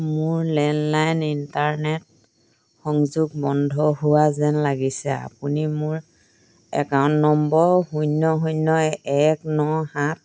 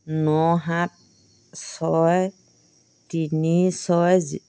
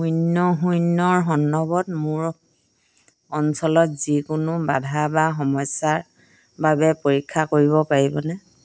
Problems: none marked